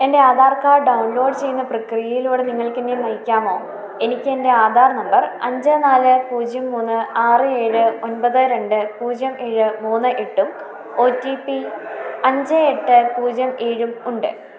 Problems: constant background noise